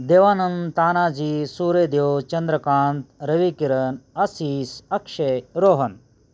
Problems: none marked